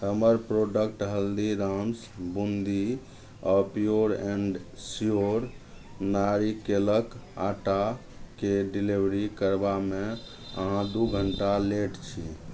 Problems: none marked